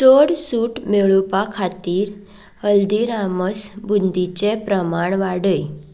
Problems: background sounds at intervals